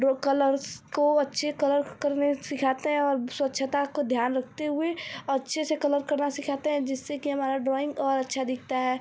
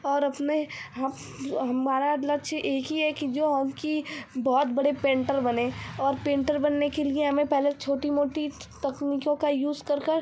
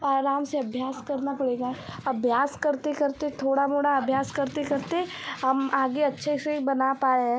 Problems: none marked